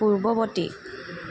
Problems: background sounds at intervals